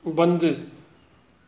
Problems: constant background noise